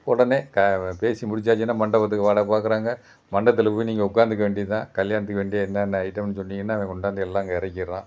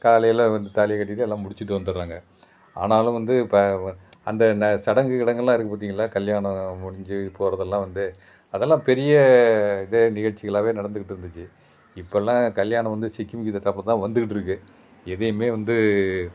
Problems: background sounds at intervals